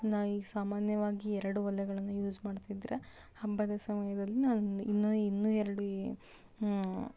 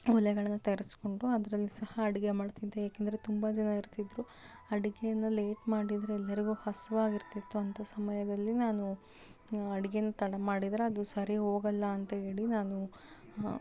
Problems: none marked